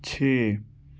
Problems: none marked